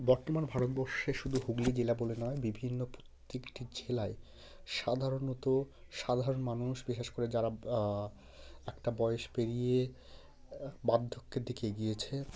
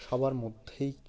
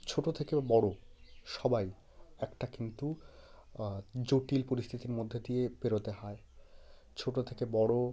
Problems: background sounds at intervals